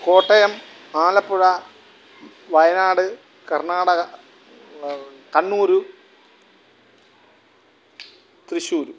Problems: background sounds at intervals